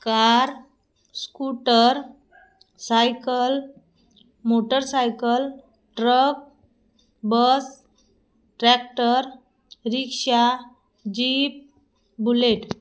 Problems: background sounds at intervals